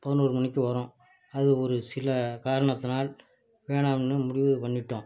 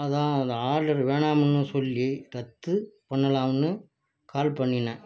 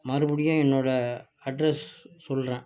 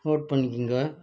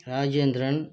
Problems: background conversations at intervals, low volume